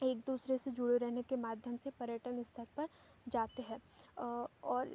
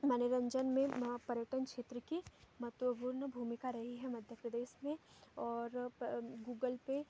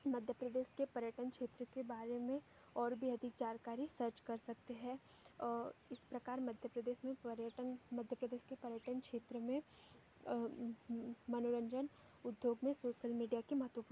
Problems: background sounds at intervals